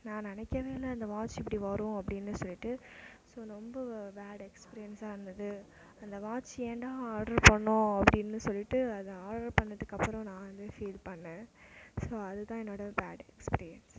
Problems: constant background noise, low volume